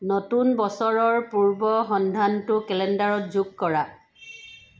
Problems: constant background noise